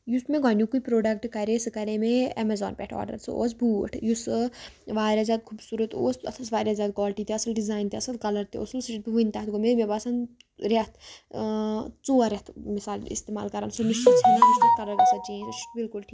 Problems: constant background noise